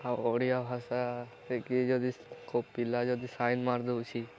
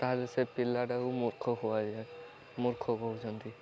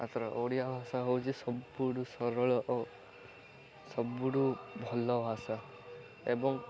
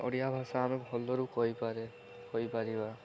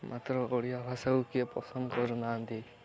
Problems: constant background noise